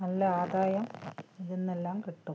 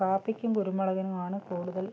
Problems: low volume